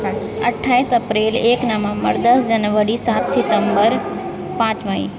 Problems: none marked